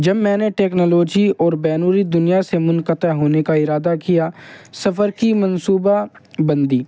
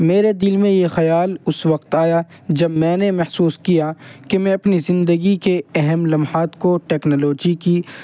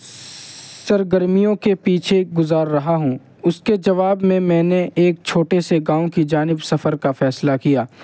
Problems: none marked